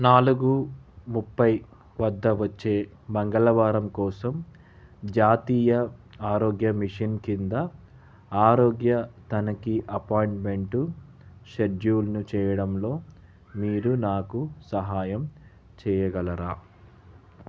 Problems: background conversations at intervals